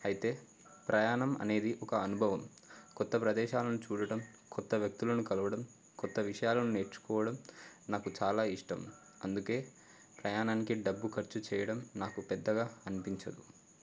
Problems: none marked